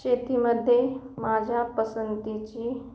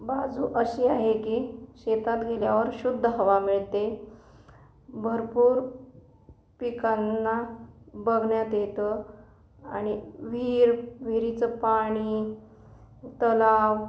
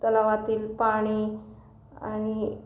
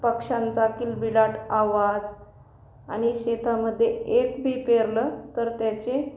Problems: none marked